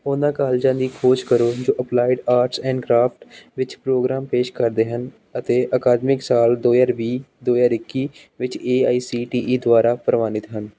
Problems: background sounds at intervals